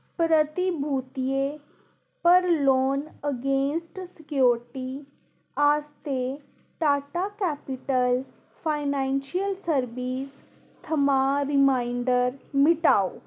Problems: constant background noise